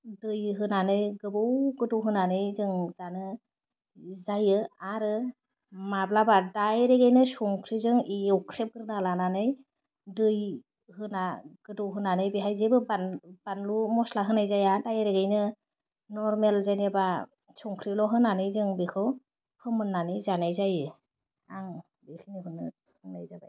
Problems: none marked